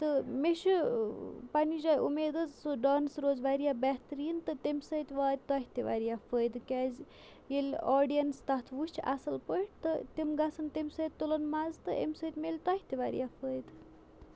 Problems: none marked